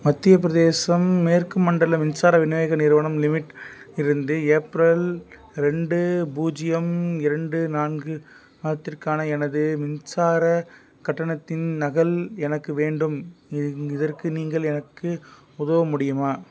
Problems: none marked